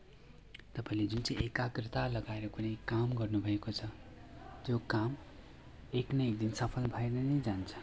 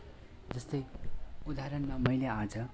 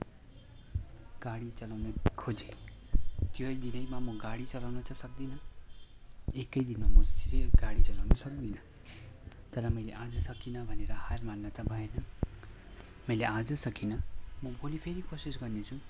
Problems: constant background noise